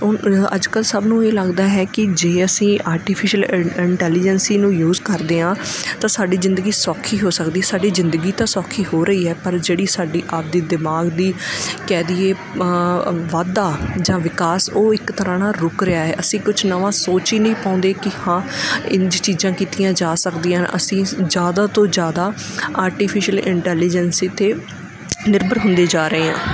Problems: background sounds at intervals